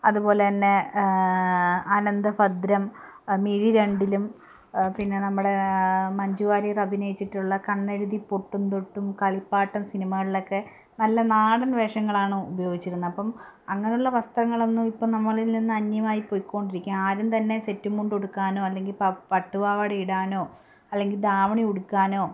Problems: none marked